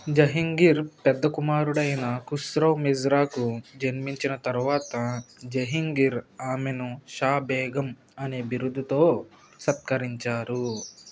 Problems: constant background noise